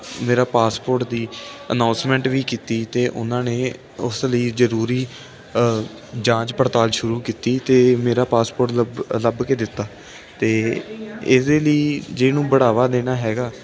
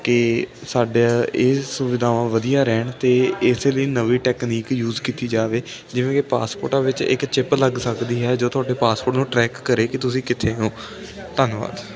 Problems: continuous background conversations